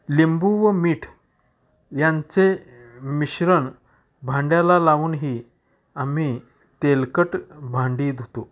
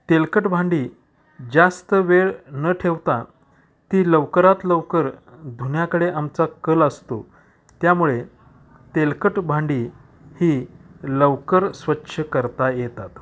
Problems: none marked